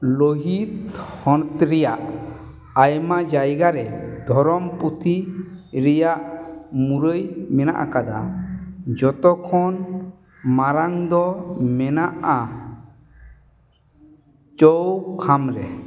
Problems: echo